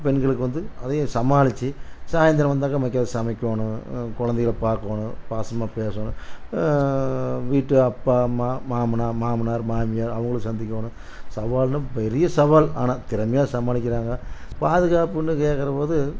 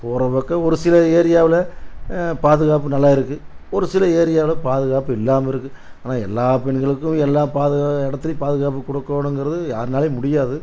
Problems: none marked